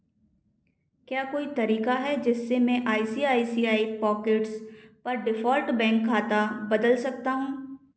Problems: echo